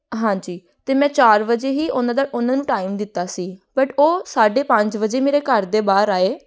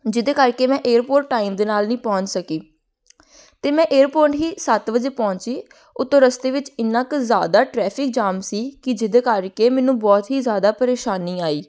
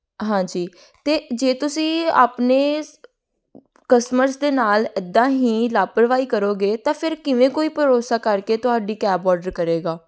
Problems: none marked